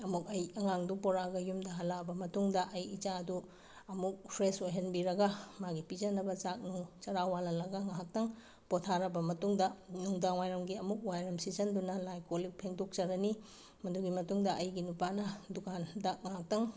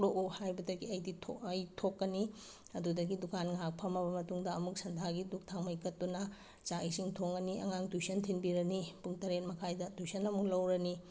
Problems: background sounds at intervals